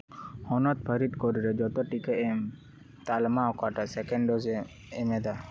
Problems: background sounds at intervals